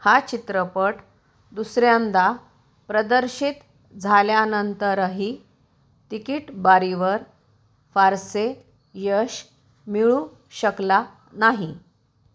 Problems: none marked